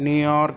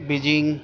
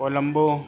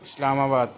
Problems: constant background noise